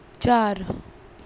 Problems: none marked